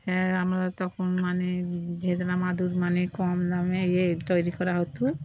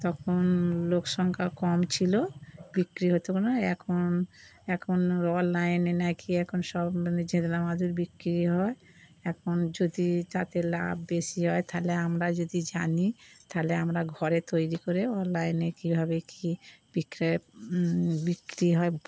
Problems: background sounds at intervals